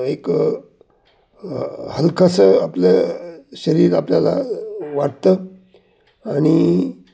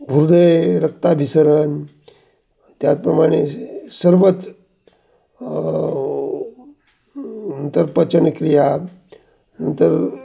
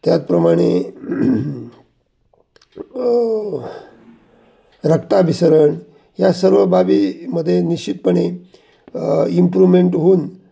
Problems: constant background noise